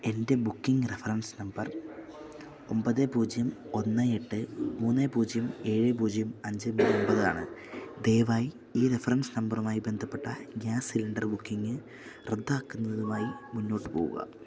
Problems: none marked